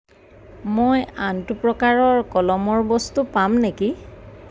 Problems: none marked